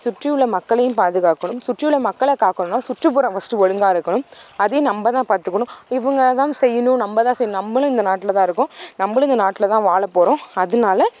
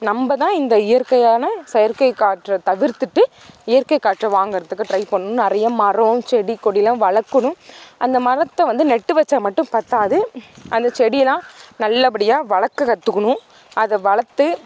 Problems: constant background noise